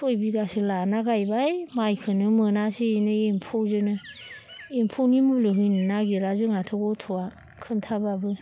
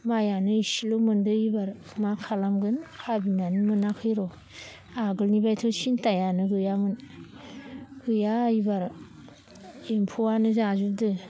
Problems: low volume